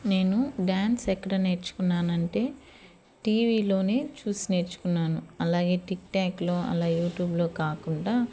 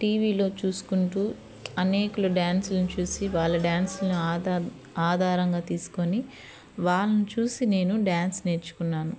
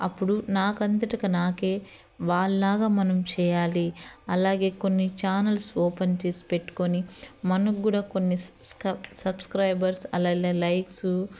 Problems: constant background noise